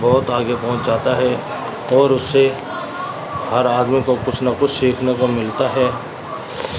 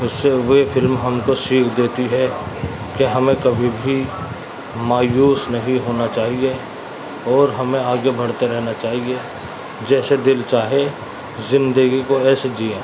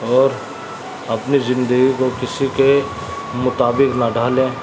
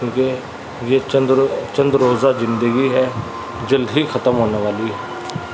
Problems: constant background noise